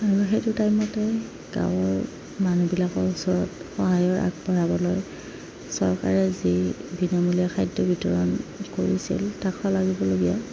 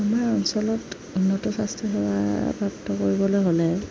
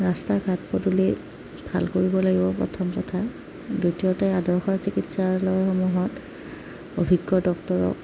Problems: background sounds at intervals